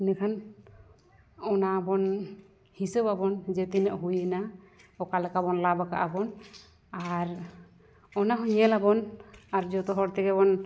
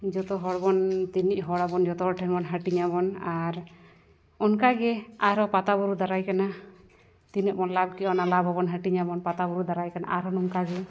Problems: background conversations at intervals